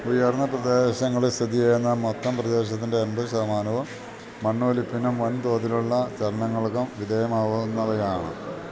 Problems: none marked